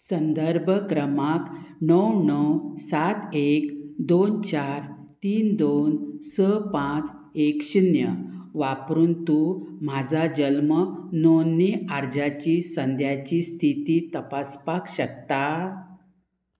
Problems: constant background noise